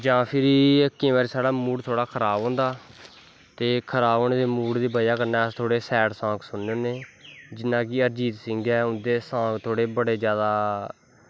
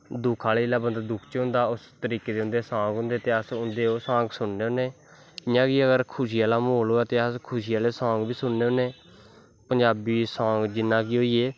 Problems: constant background noise